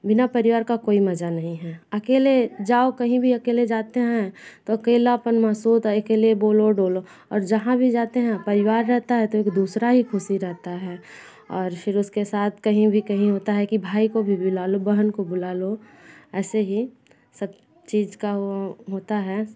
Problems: none marked